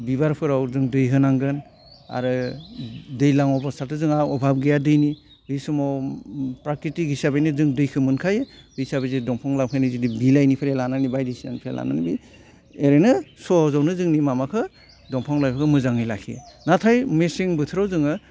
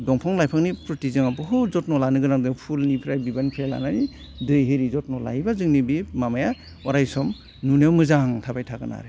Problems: none marked